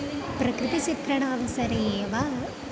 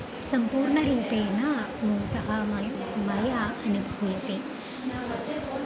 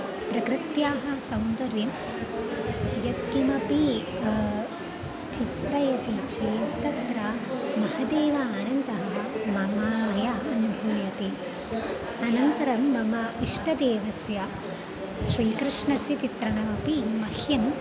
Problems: none marked